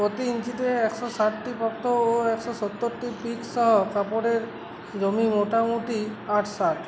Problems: none marked